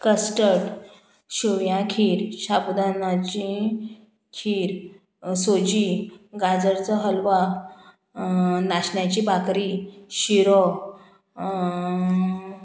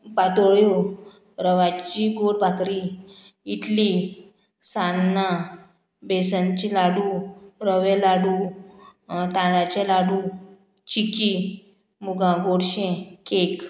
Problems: none marked